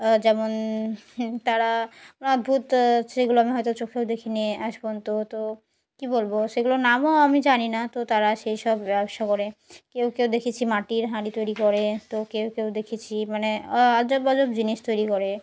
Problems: background sounds at intervals